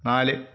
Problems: background sounds at intervals